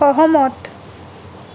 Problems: constant background noise